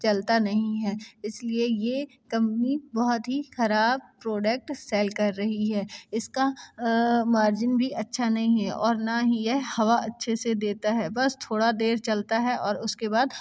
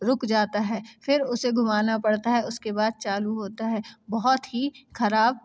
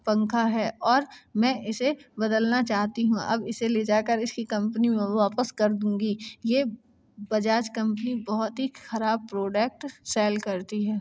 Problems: constant background noise